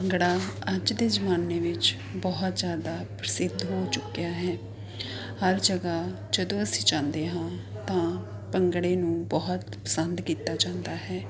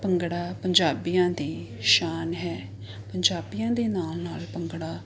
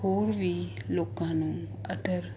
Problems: constant background noise